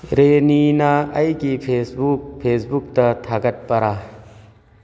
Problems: background sounds at intervals